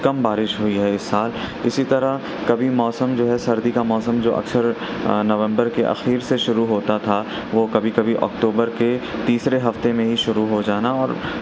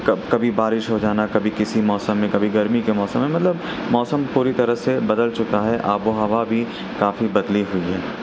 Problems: constant background noise